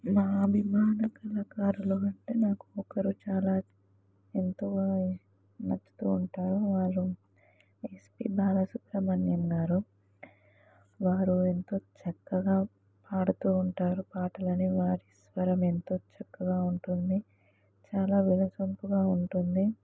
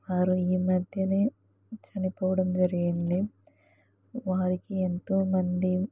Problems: background conversations at intervals